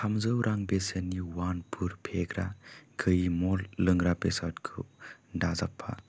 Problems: low volume